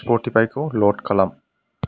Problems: constant background noise